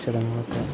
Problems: constant background noise